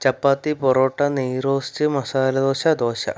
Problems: none marked